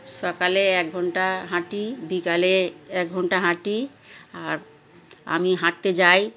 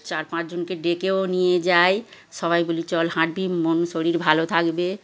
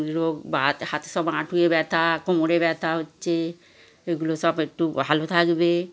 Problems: constant background noise, background conversations at intervals